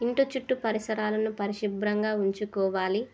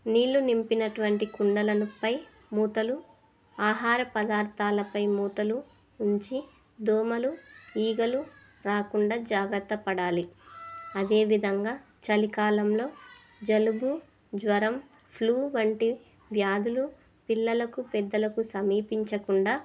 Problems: continuous background conversations